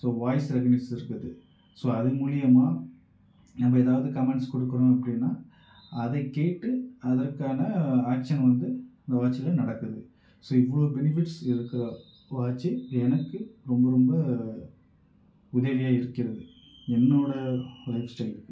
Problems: echo, low volume